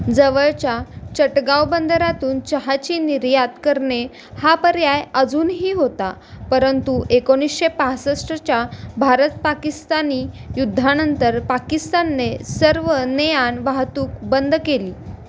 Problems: none marked